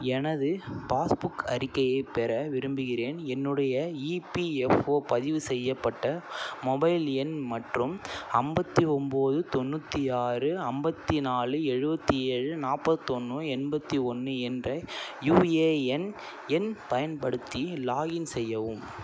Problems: none marked